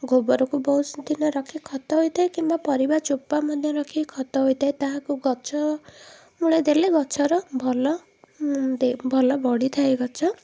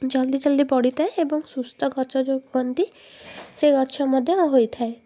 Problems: background sounds at intervals